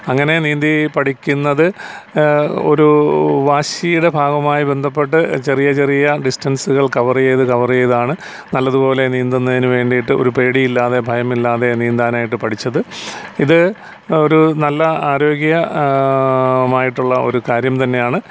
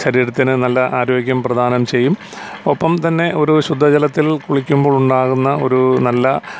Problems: constant background noise